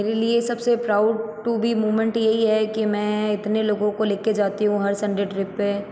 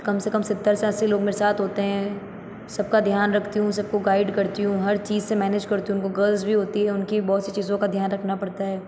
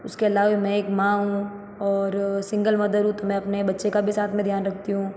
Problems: echo